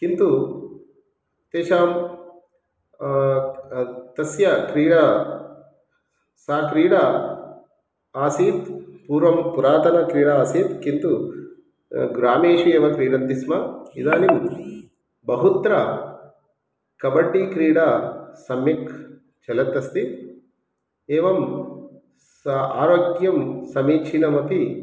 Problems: background sounds at intervals